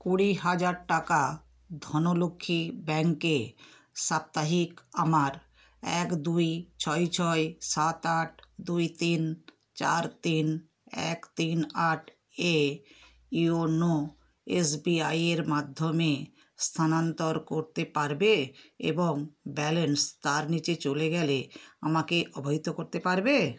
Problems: background conversations at intervals